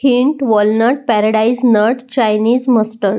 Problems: none marked